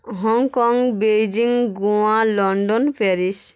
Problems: none marked